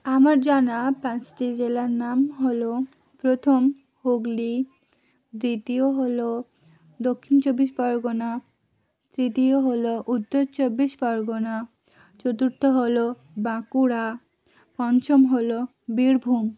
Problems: none marked